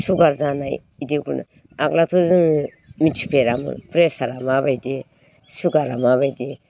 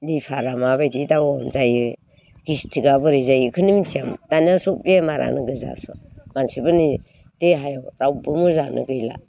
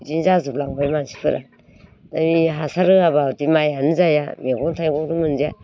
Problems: background conversations at intervals